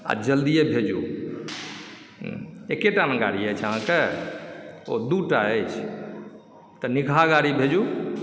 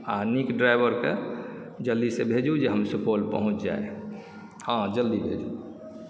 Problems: background sounds at intervals